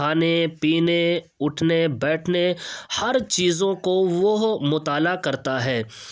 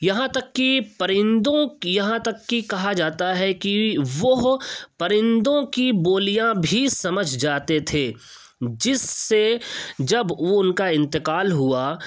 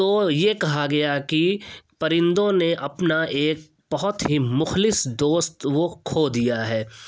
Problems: constant background noise